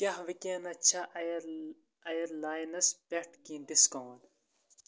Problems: constant background noise